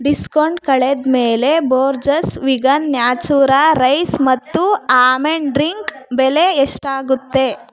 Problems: background sounds at intervals